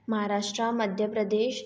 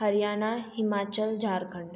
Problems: echo